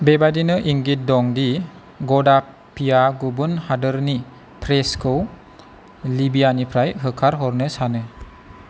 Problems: constant background noise